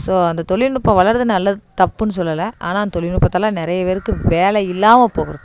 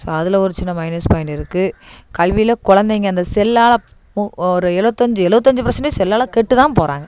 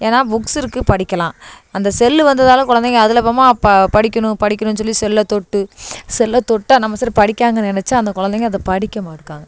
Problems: none marked